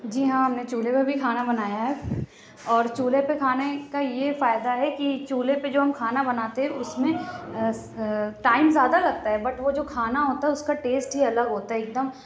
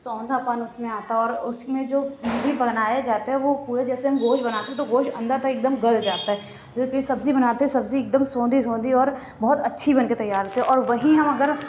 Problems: constant background noise